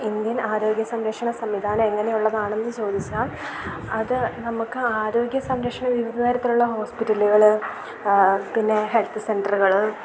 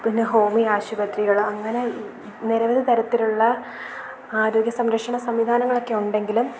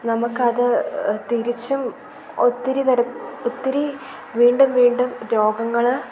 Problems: none marked